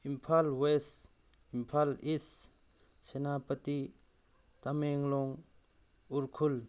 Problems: none marked